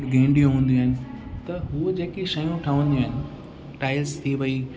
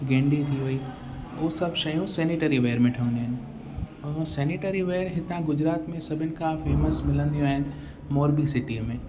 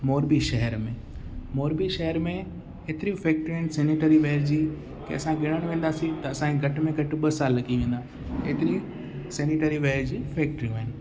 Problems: constant background noise, echo